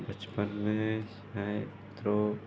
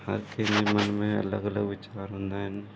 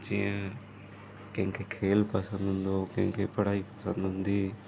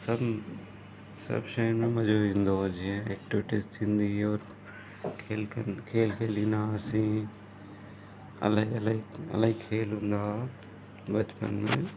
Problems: constant background noise, low volume